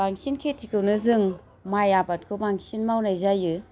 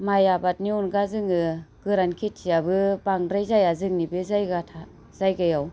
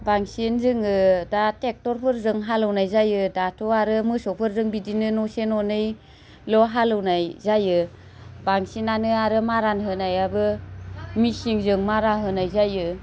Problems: none marked